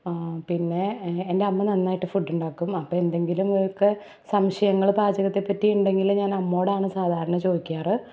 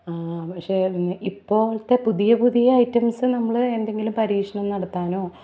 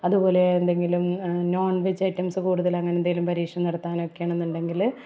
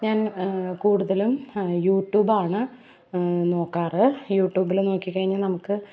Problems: none marked